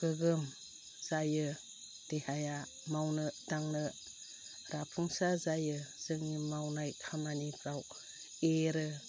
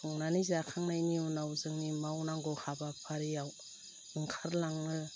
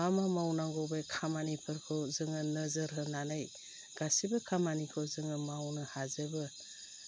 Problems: low volume